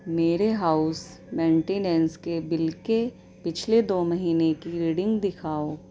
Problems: none marked